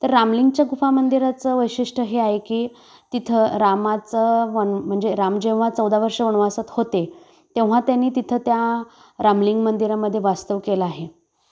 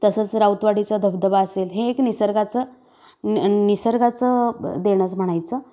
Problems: constant background noise, background conversations at intervals